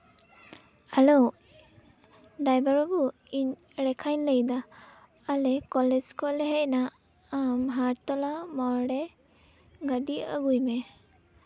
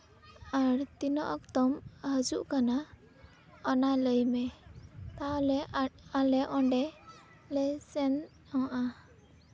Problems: background sounds at intervals, background conversations at intervals